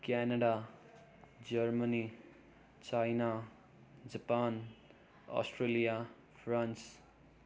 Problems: none marked